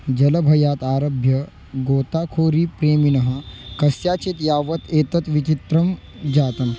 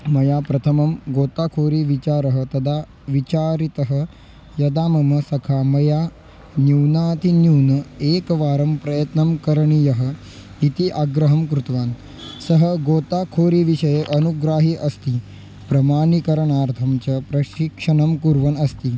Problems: background sounds at intervals